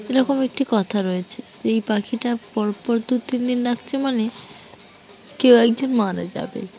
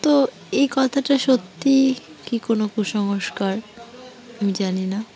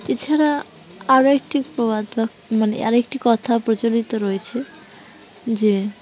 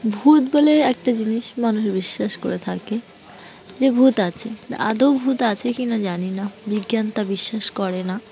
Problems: background sounds at intervals, continuous background conversations